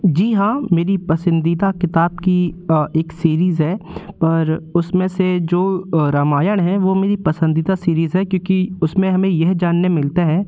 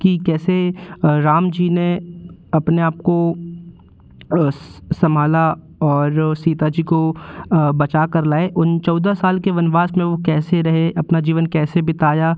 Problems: constant background noise